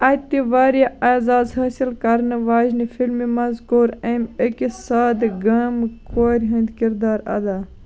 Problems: background sounds at intervals, background conversations at intervals